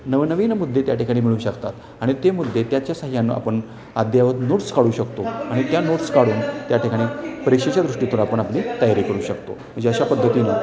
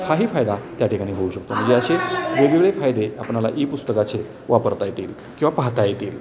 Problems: none marked